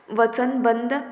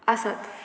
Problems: constant background noise